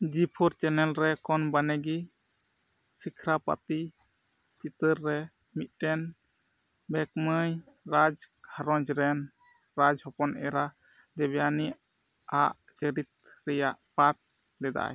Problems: none marked